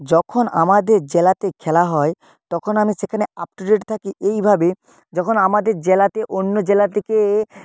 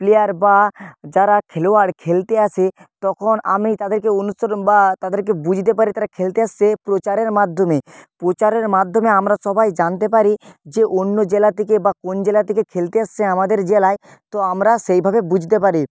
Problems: none marked